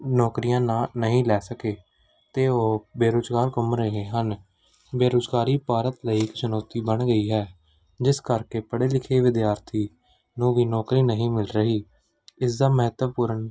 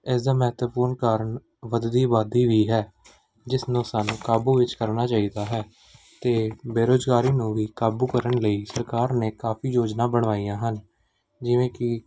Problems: background sounds at intervals